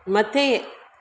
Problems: constant background noise, echo